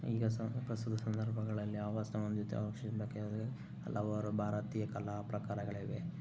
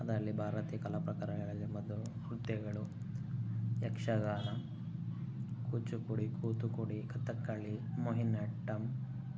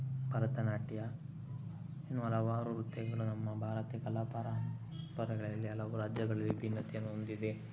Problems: low volume